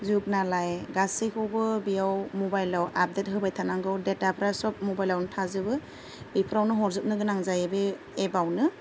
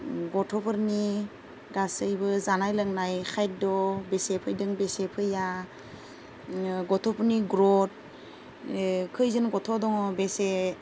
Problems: low volume